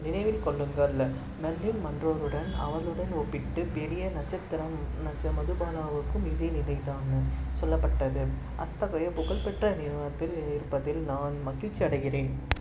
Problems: low volume